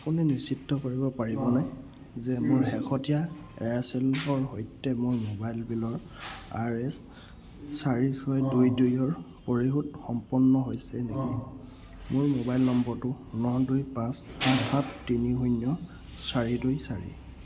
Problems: constant background noise